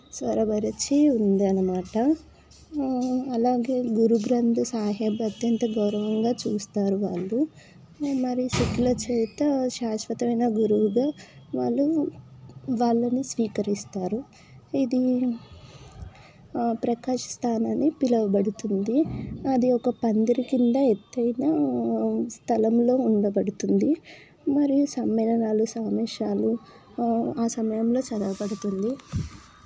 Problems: background conversations at intervals